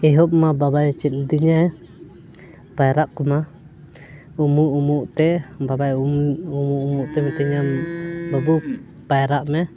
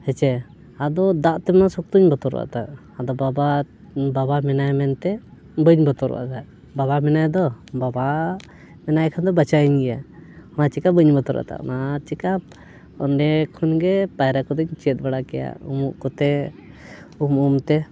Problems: none marked